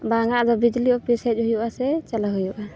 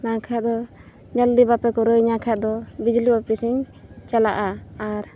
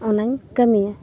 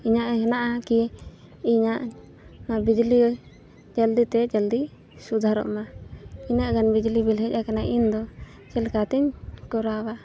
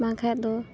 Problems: constant background noise